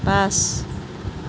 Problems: constant background noise